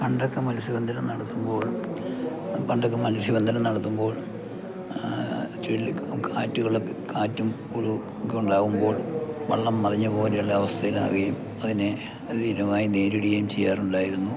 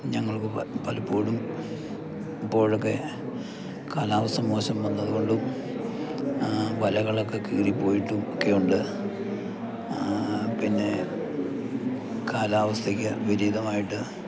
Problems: constant background noise, low volume